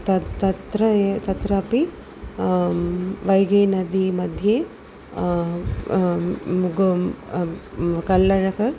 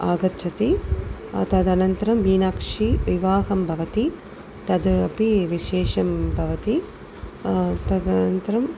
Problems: none marked